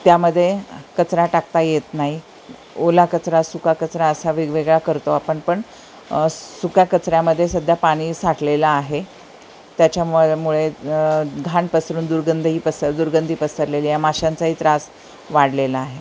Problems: constant background noise